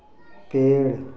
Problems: background sounds at intervals